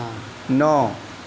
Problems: none marked